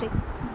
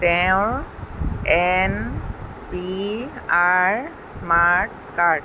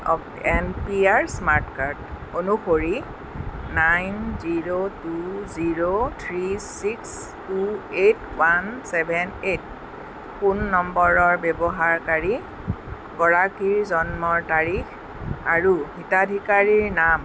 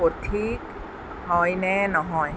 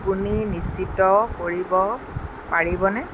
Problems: constant background noise, background conversations at intervals